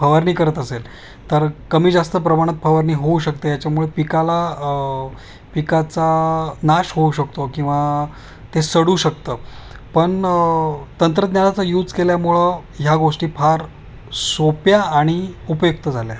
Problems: none marked